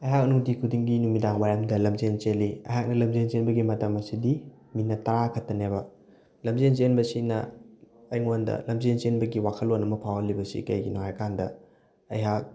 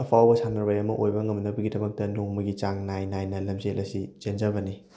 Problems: none marked